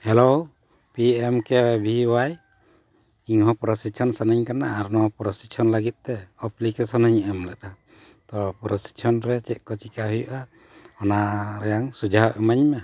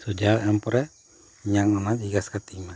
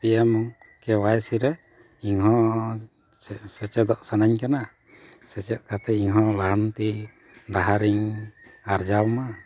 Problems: constant background noise